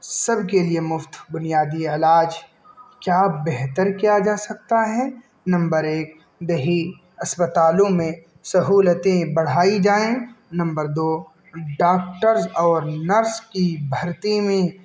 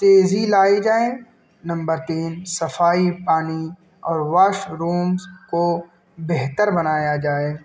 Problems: constant background noise